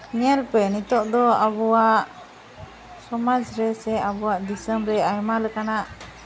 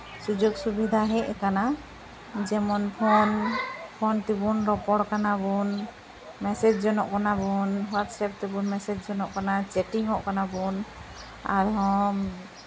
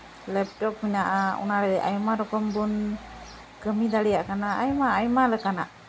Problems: constant background noise, continuous background conversations